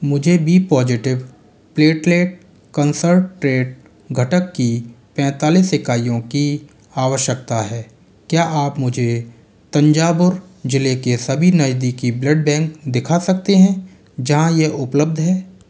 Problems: background sounds at intervals